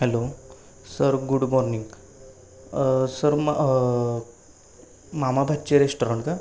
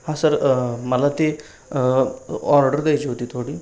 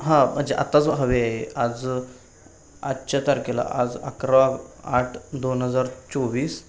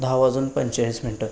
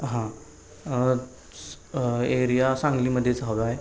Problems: constant background noise, background conversations at intervals